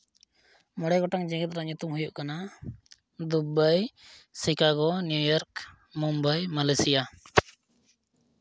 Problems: none marked